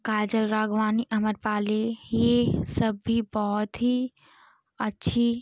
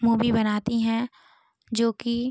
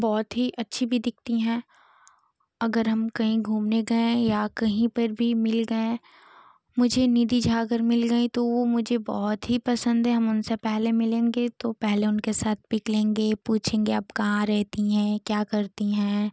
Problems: none marked